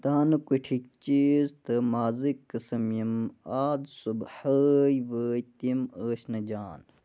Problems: constant background noise